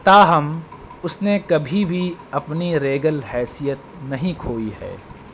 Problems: constant background noise